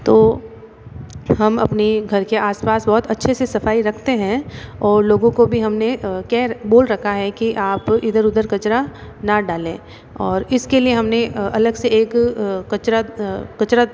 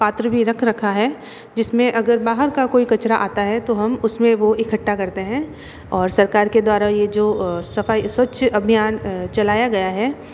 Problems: none marked